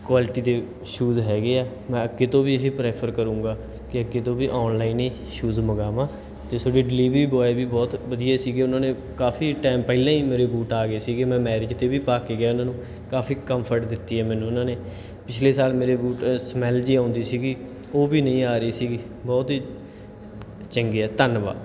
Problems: background sounds at intervals